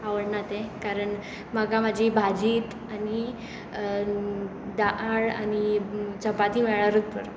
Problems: constant background noise